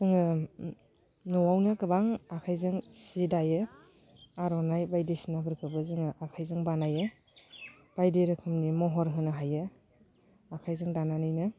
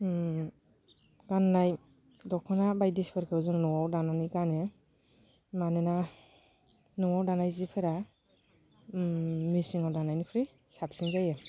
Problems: constant background noise